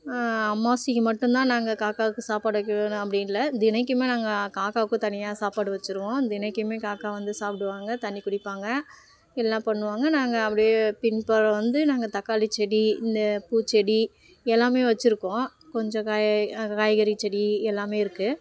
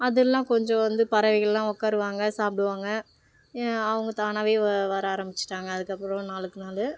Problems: background sounds at intervals